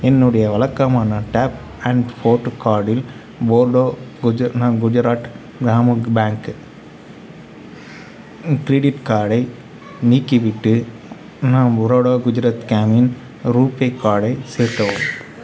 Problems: constant background noise, background conversations at intervals